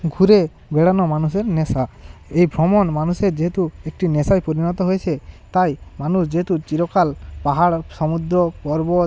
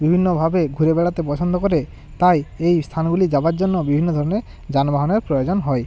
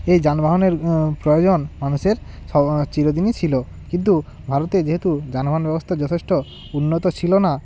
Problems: constant background noise